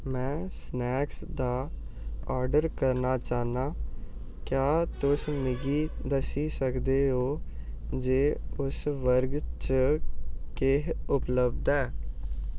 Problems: background sounds at intervals